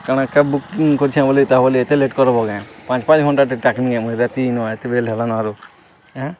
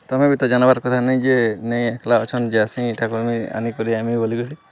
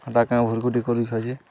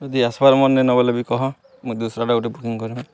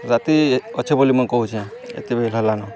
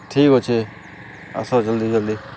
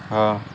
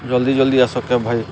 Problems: none marked